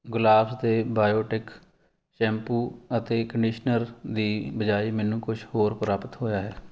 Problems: none marked